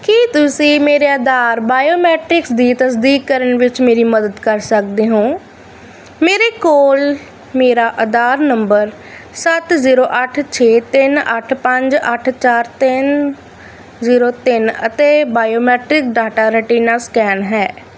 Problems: none marked